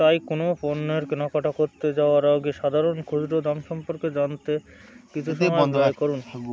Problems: constant background noise, continuous background conversations